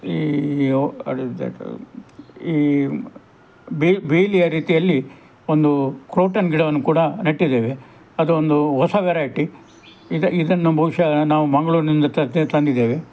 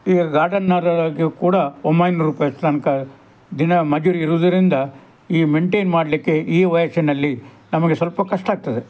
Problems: background conversations at intervals